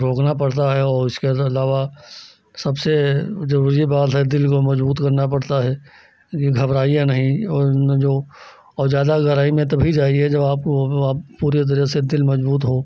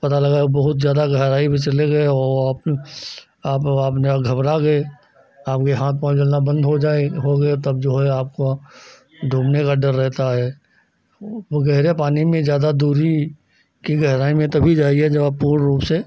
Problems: none marked